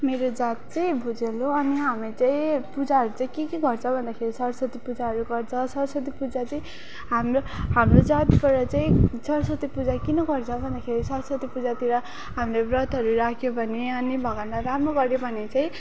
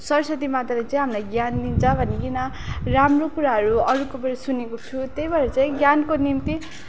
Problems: background sounds at intervals